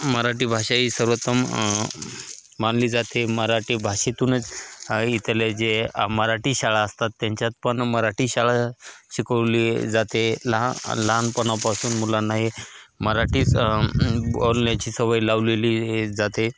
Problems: constant background noise